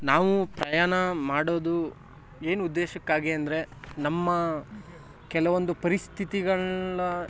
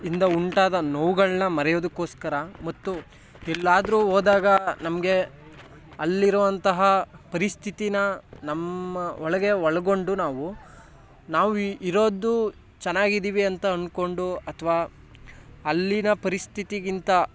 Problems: background sounds at intervals